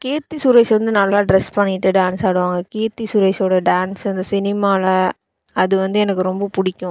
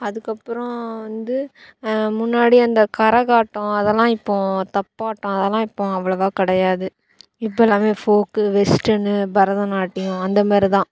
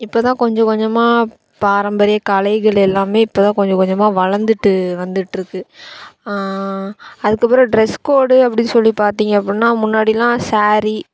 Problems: background sounds at intervals